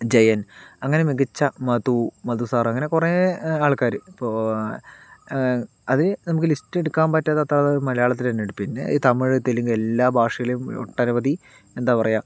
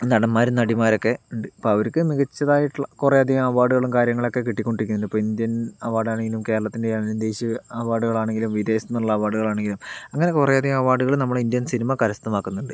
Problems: none marked